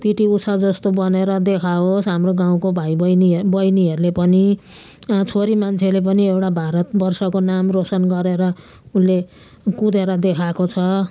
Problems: constant background noise